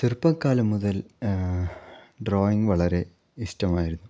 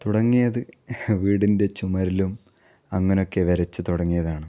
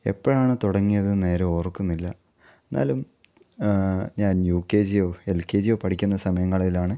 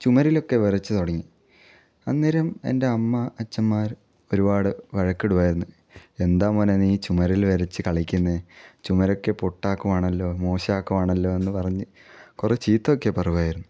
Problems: none marked